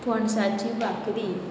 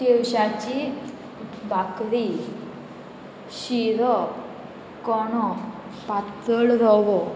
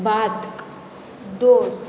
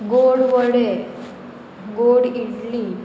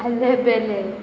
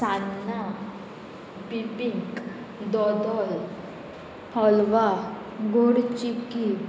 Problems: constant background noise